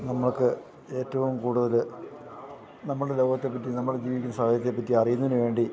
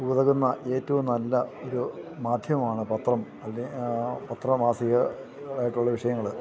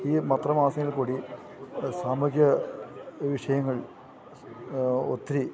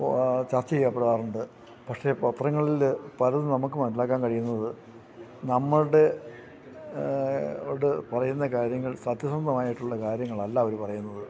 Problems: background conversations at intervals